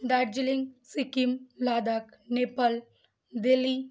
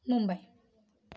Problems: constant background noise